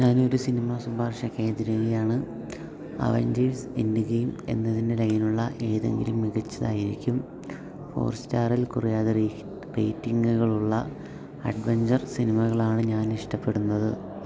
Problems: background sounds at intervals, low volume